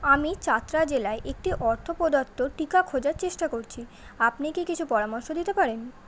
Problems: constant background noise